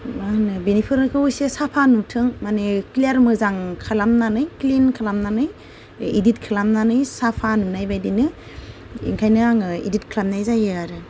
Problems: none marked